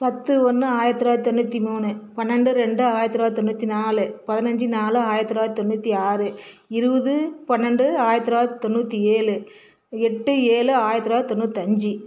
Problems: none marked